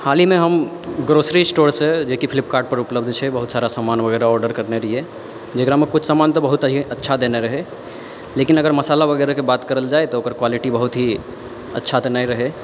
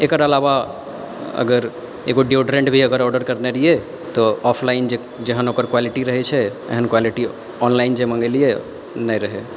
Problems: constant background noise